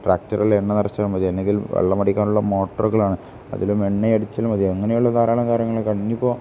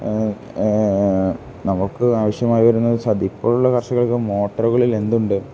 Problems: none marked